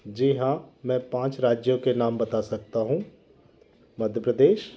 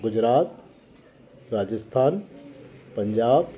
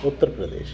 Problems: background sounds at intervals